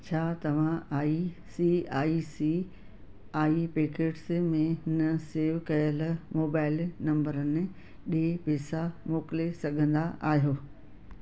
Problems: constant background noise